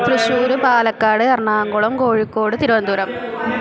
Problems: constant background noise